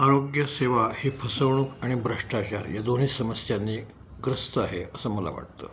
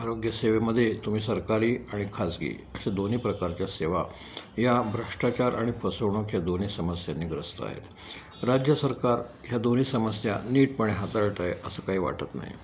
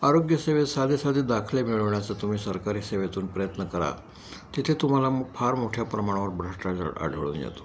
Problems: none marked